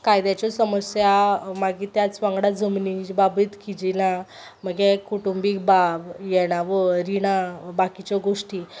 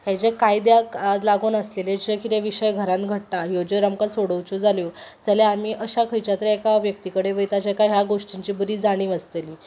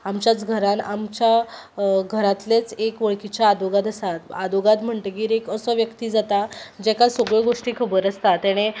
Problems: none marked